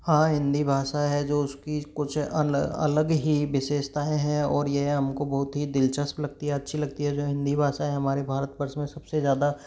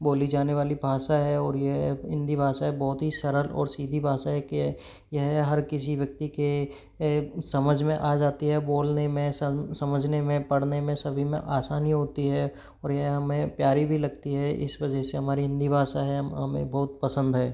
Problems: background sounds at intervals